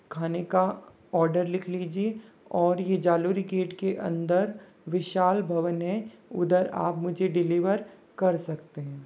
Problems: low volume